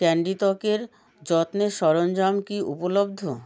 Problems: none marked